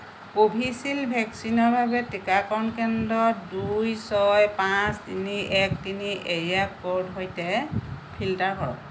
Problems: constant background noise